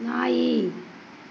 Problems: constant background noise